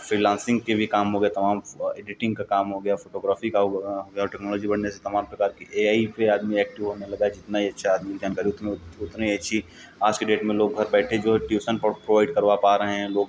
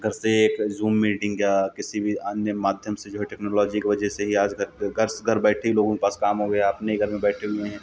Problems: background sounds at intervals